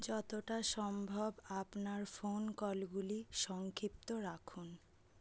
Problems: none marked